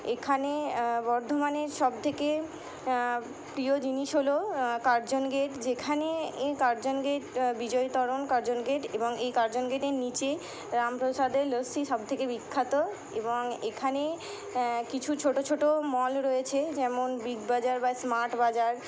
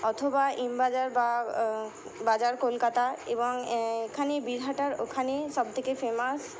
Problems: none marked